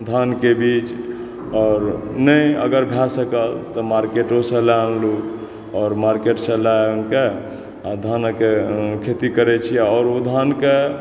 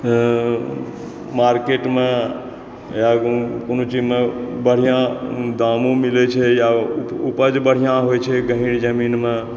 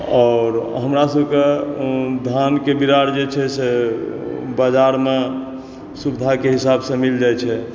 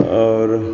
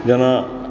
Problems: background sounds at intervals